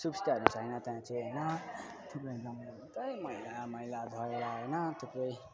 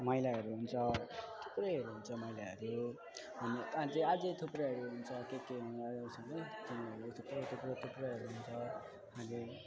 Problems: constant background noise